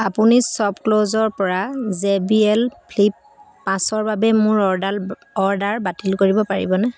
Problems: none marked